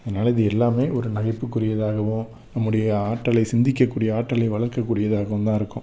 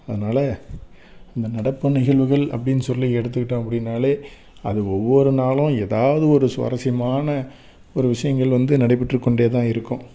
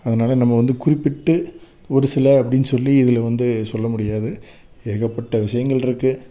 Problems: none marked